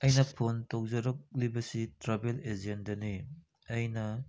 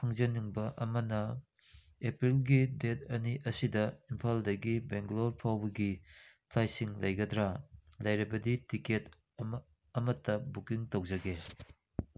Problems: none marked